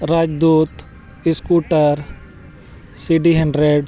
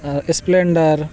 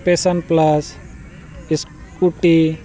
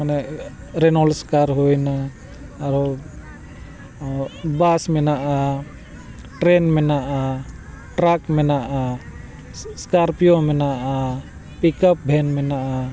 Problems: constant background noise, background conversations at intervals